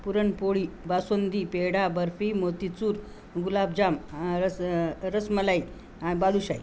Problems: none marked